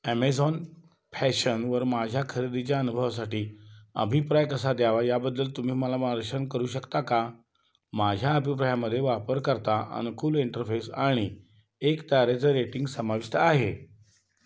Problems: background sounds at intervals